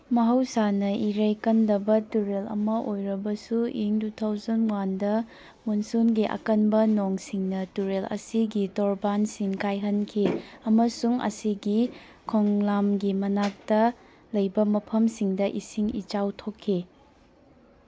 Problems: none marked